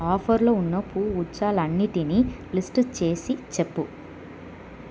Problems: constant background noise